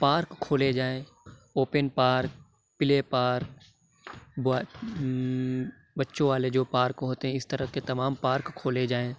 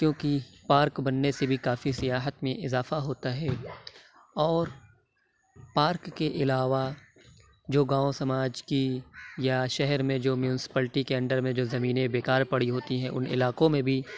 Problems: constant background noise